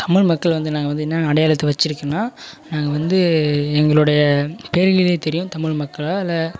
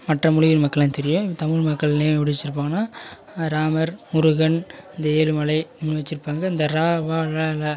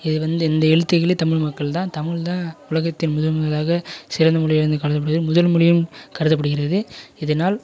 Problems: continuous background conversations